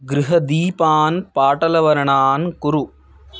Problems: background sounds at intervals